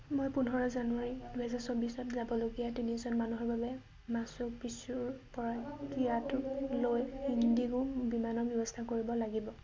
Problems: low volume